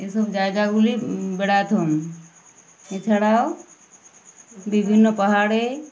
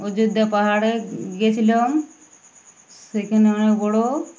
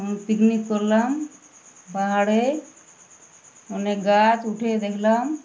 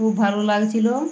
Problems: none marked